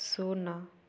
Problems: none marked